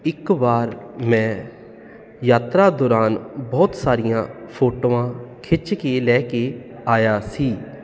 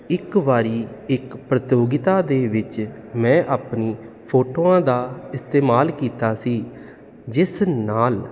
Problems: none marked